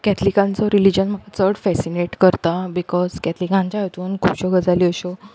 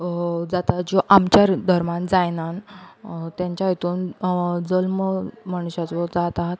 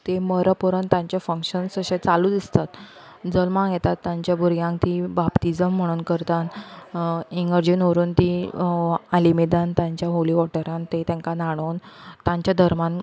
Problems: background conversations at intervals